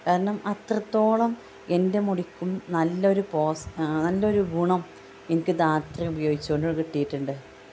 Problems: background sounds at intervals